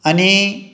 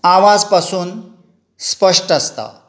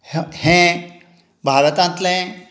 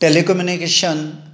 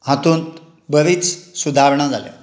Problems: none marked